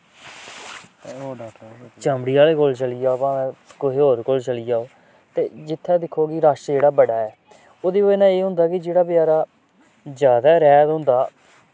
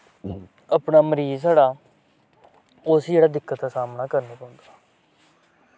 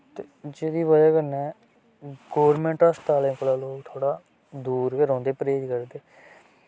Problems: constant background noise